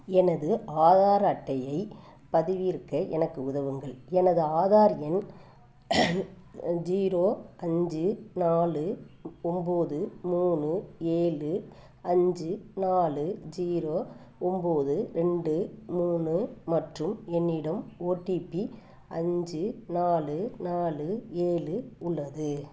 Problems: background sounds at intervals